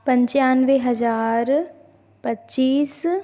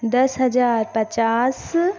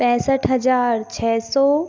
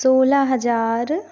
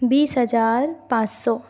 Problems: constant background noise, echo